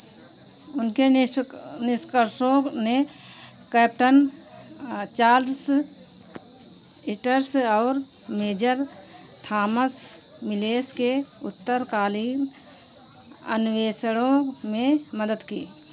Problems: none marked